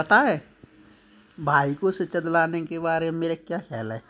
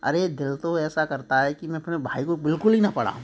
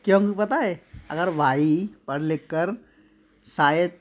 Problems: none marked